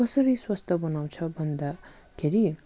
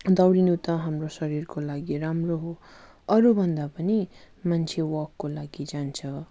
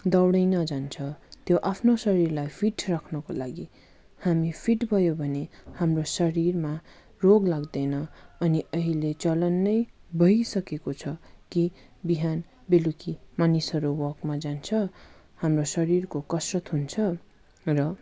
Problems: none marked